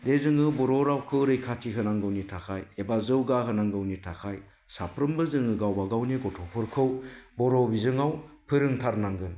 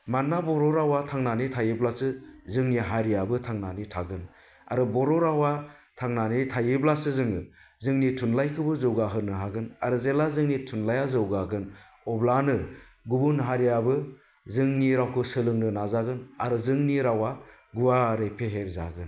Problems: none marked